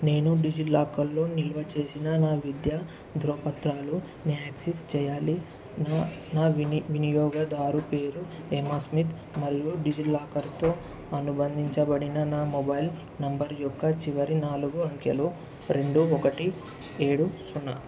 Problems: constant background noise